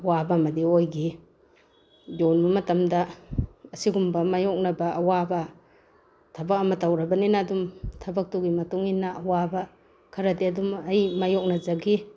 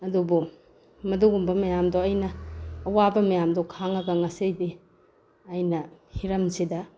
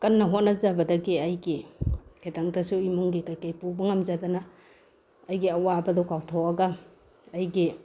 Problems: background sounds at intervals